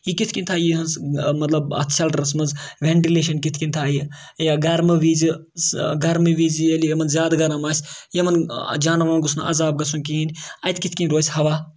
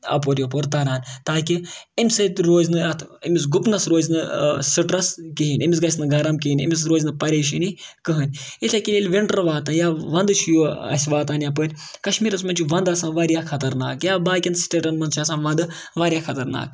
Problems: background sounds at intervals